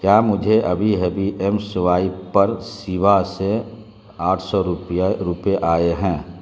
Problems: constant background noise